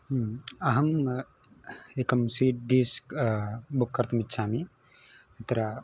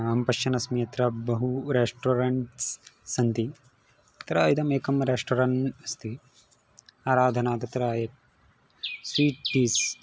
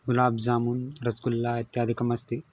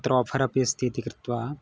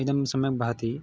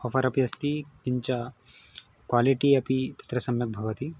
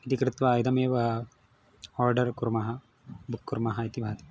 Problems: background sounds at intervals